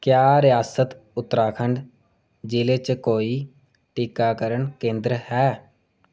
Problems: none marked